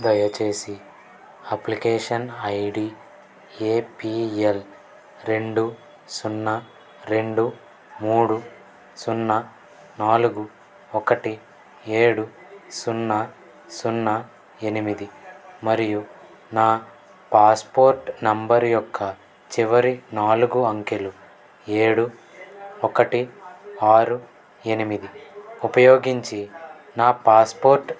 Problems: background conversations at intervals